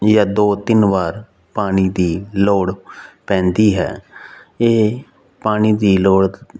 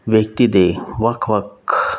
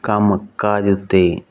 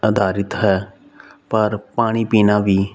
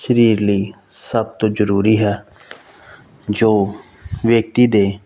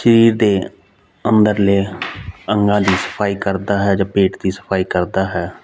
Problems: background sounds at intervals